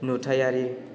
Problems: none marked